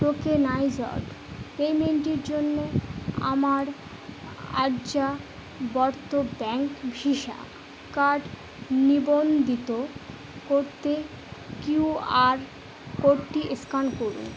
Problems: constant background noise